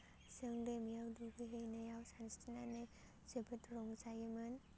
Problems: constant background noise